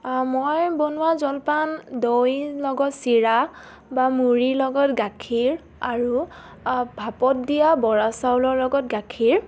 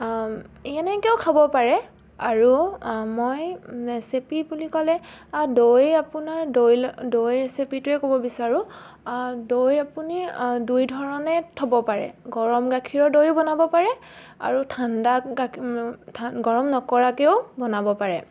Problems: constant background noise